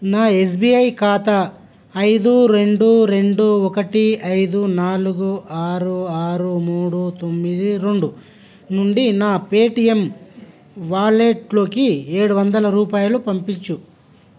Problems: none marked